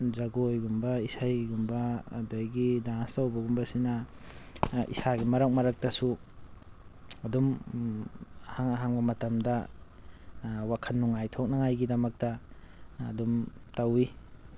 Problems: constant background noise